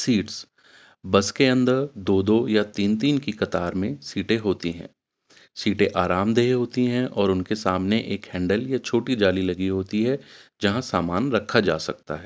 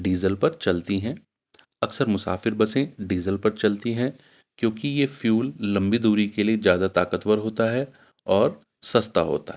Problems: none marked